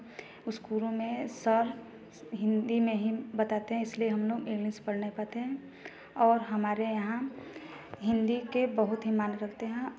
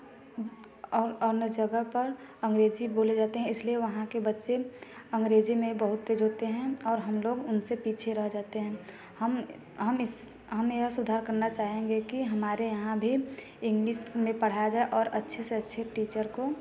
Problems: constant background noise, background conversations at intervals